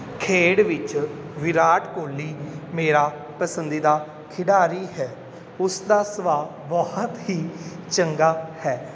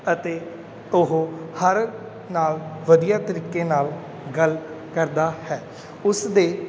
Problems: background sounds at intervals